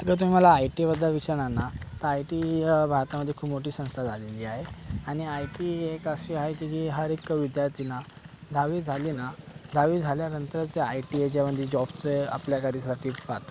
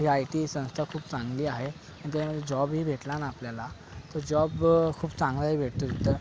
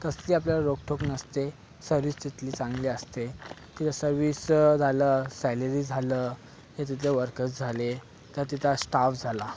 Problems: background sounds at intervals